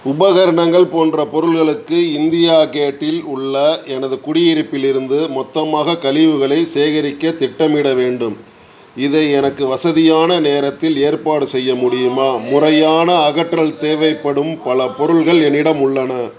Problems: background conversations at intervals